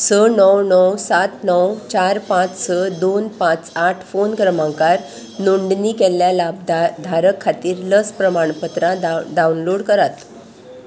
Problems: constant background noise